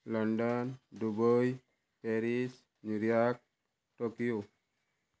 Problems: constant background noise